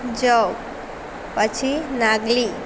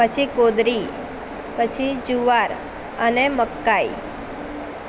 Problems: constant background noise